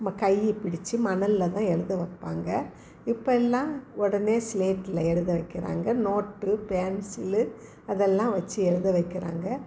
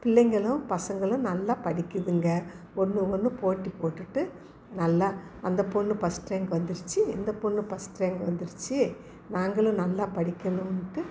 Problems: background conversations at intervals